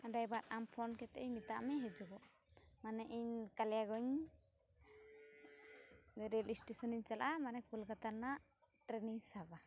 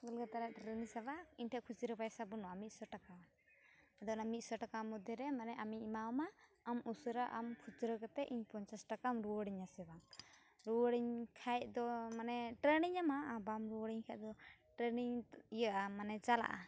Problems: background sounds at intervals